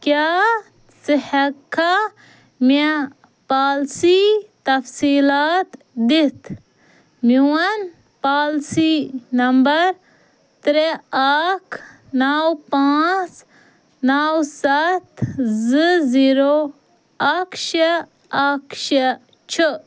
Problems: none marked